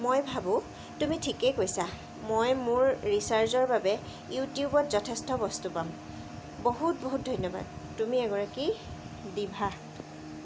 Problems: constant background noise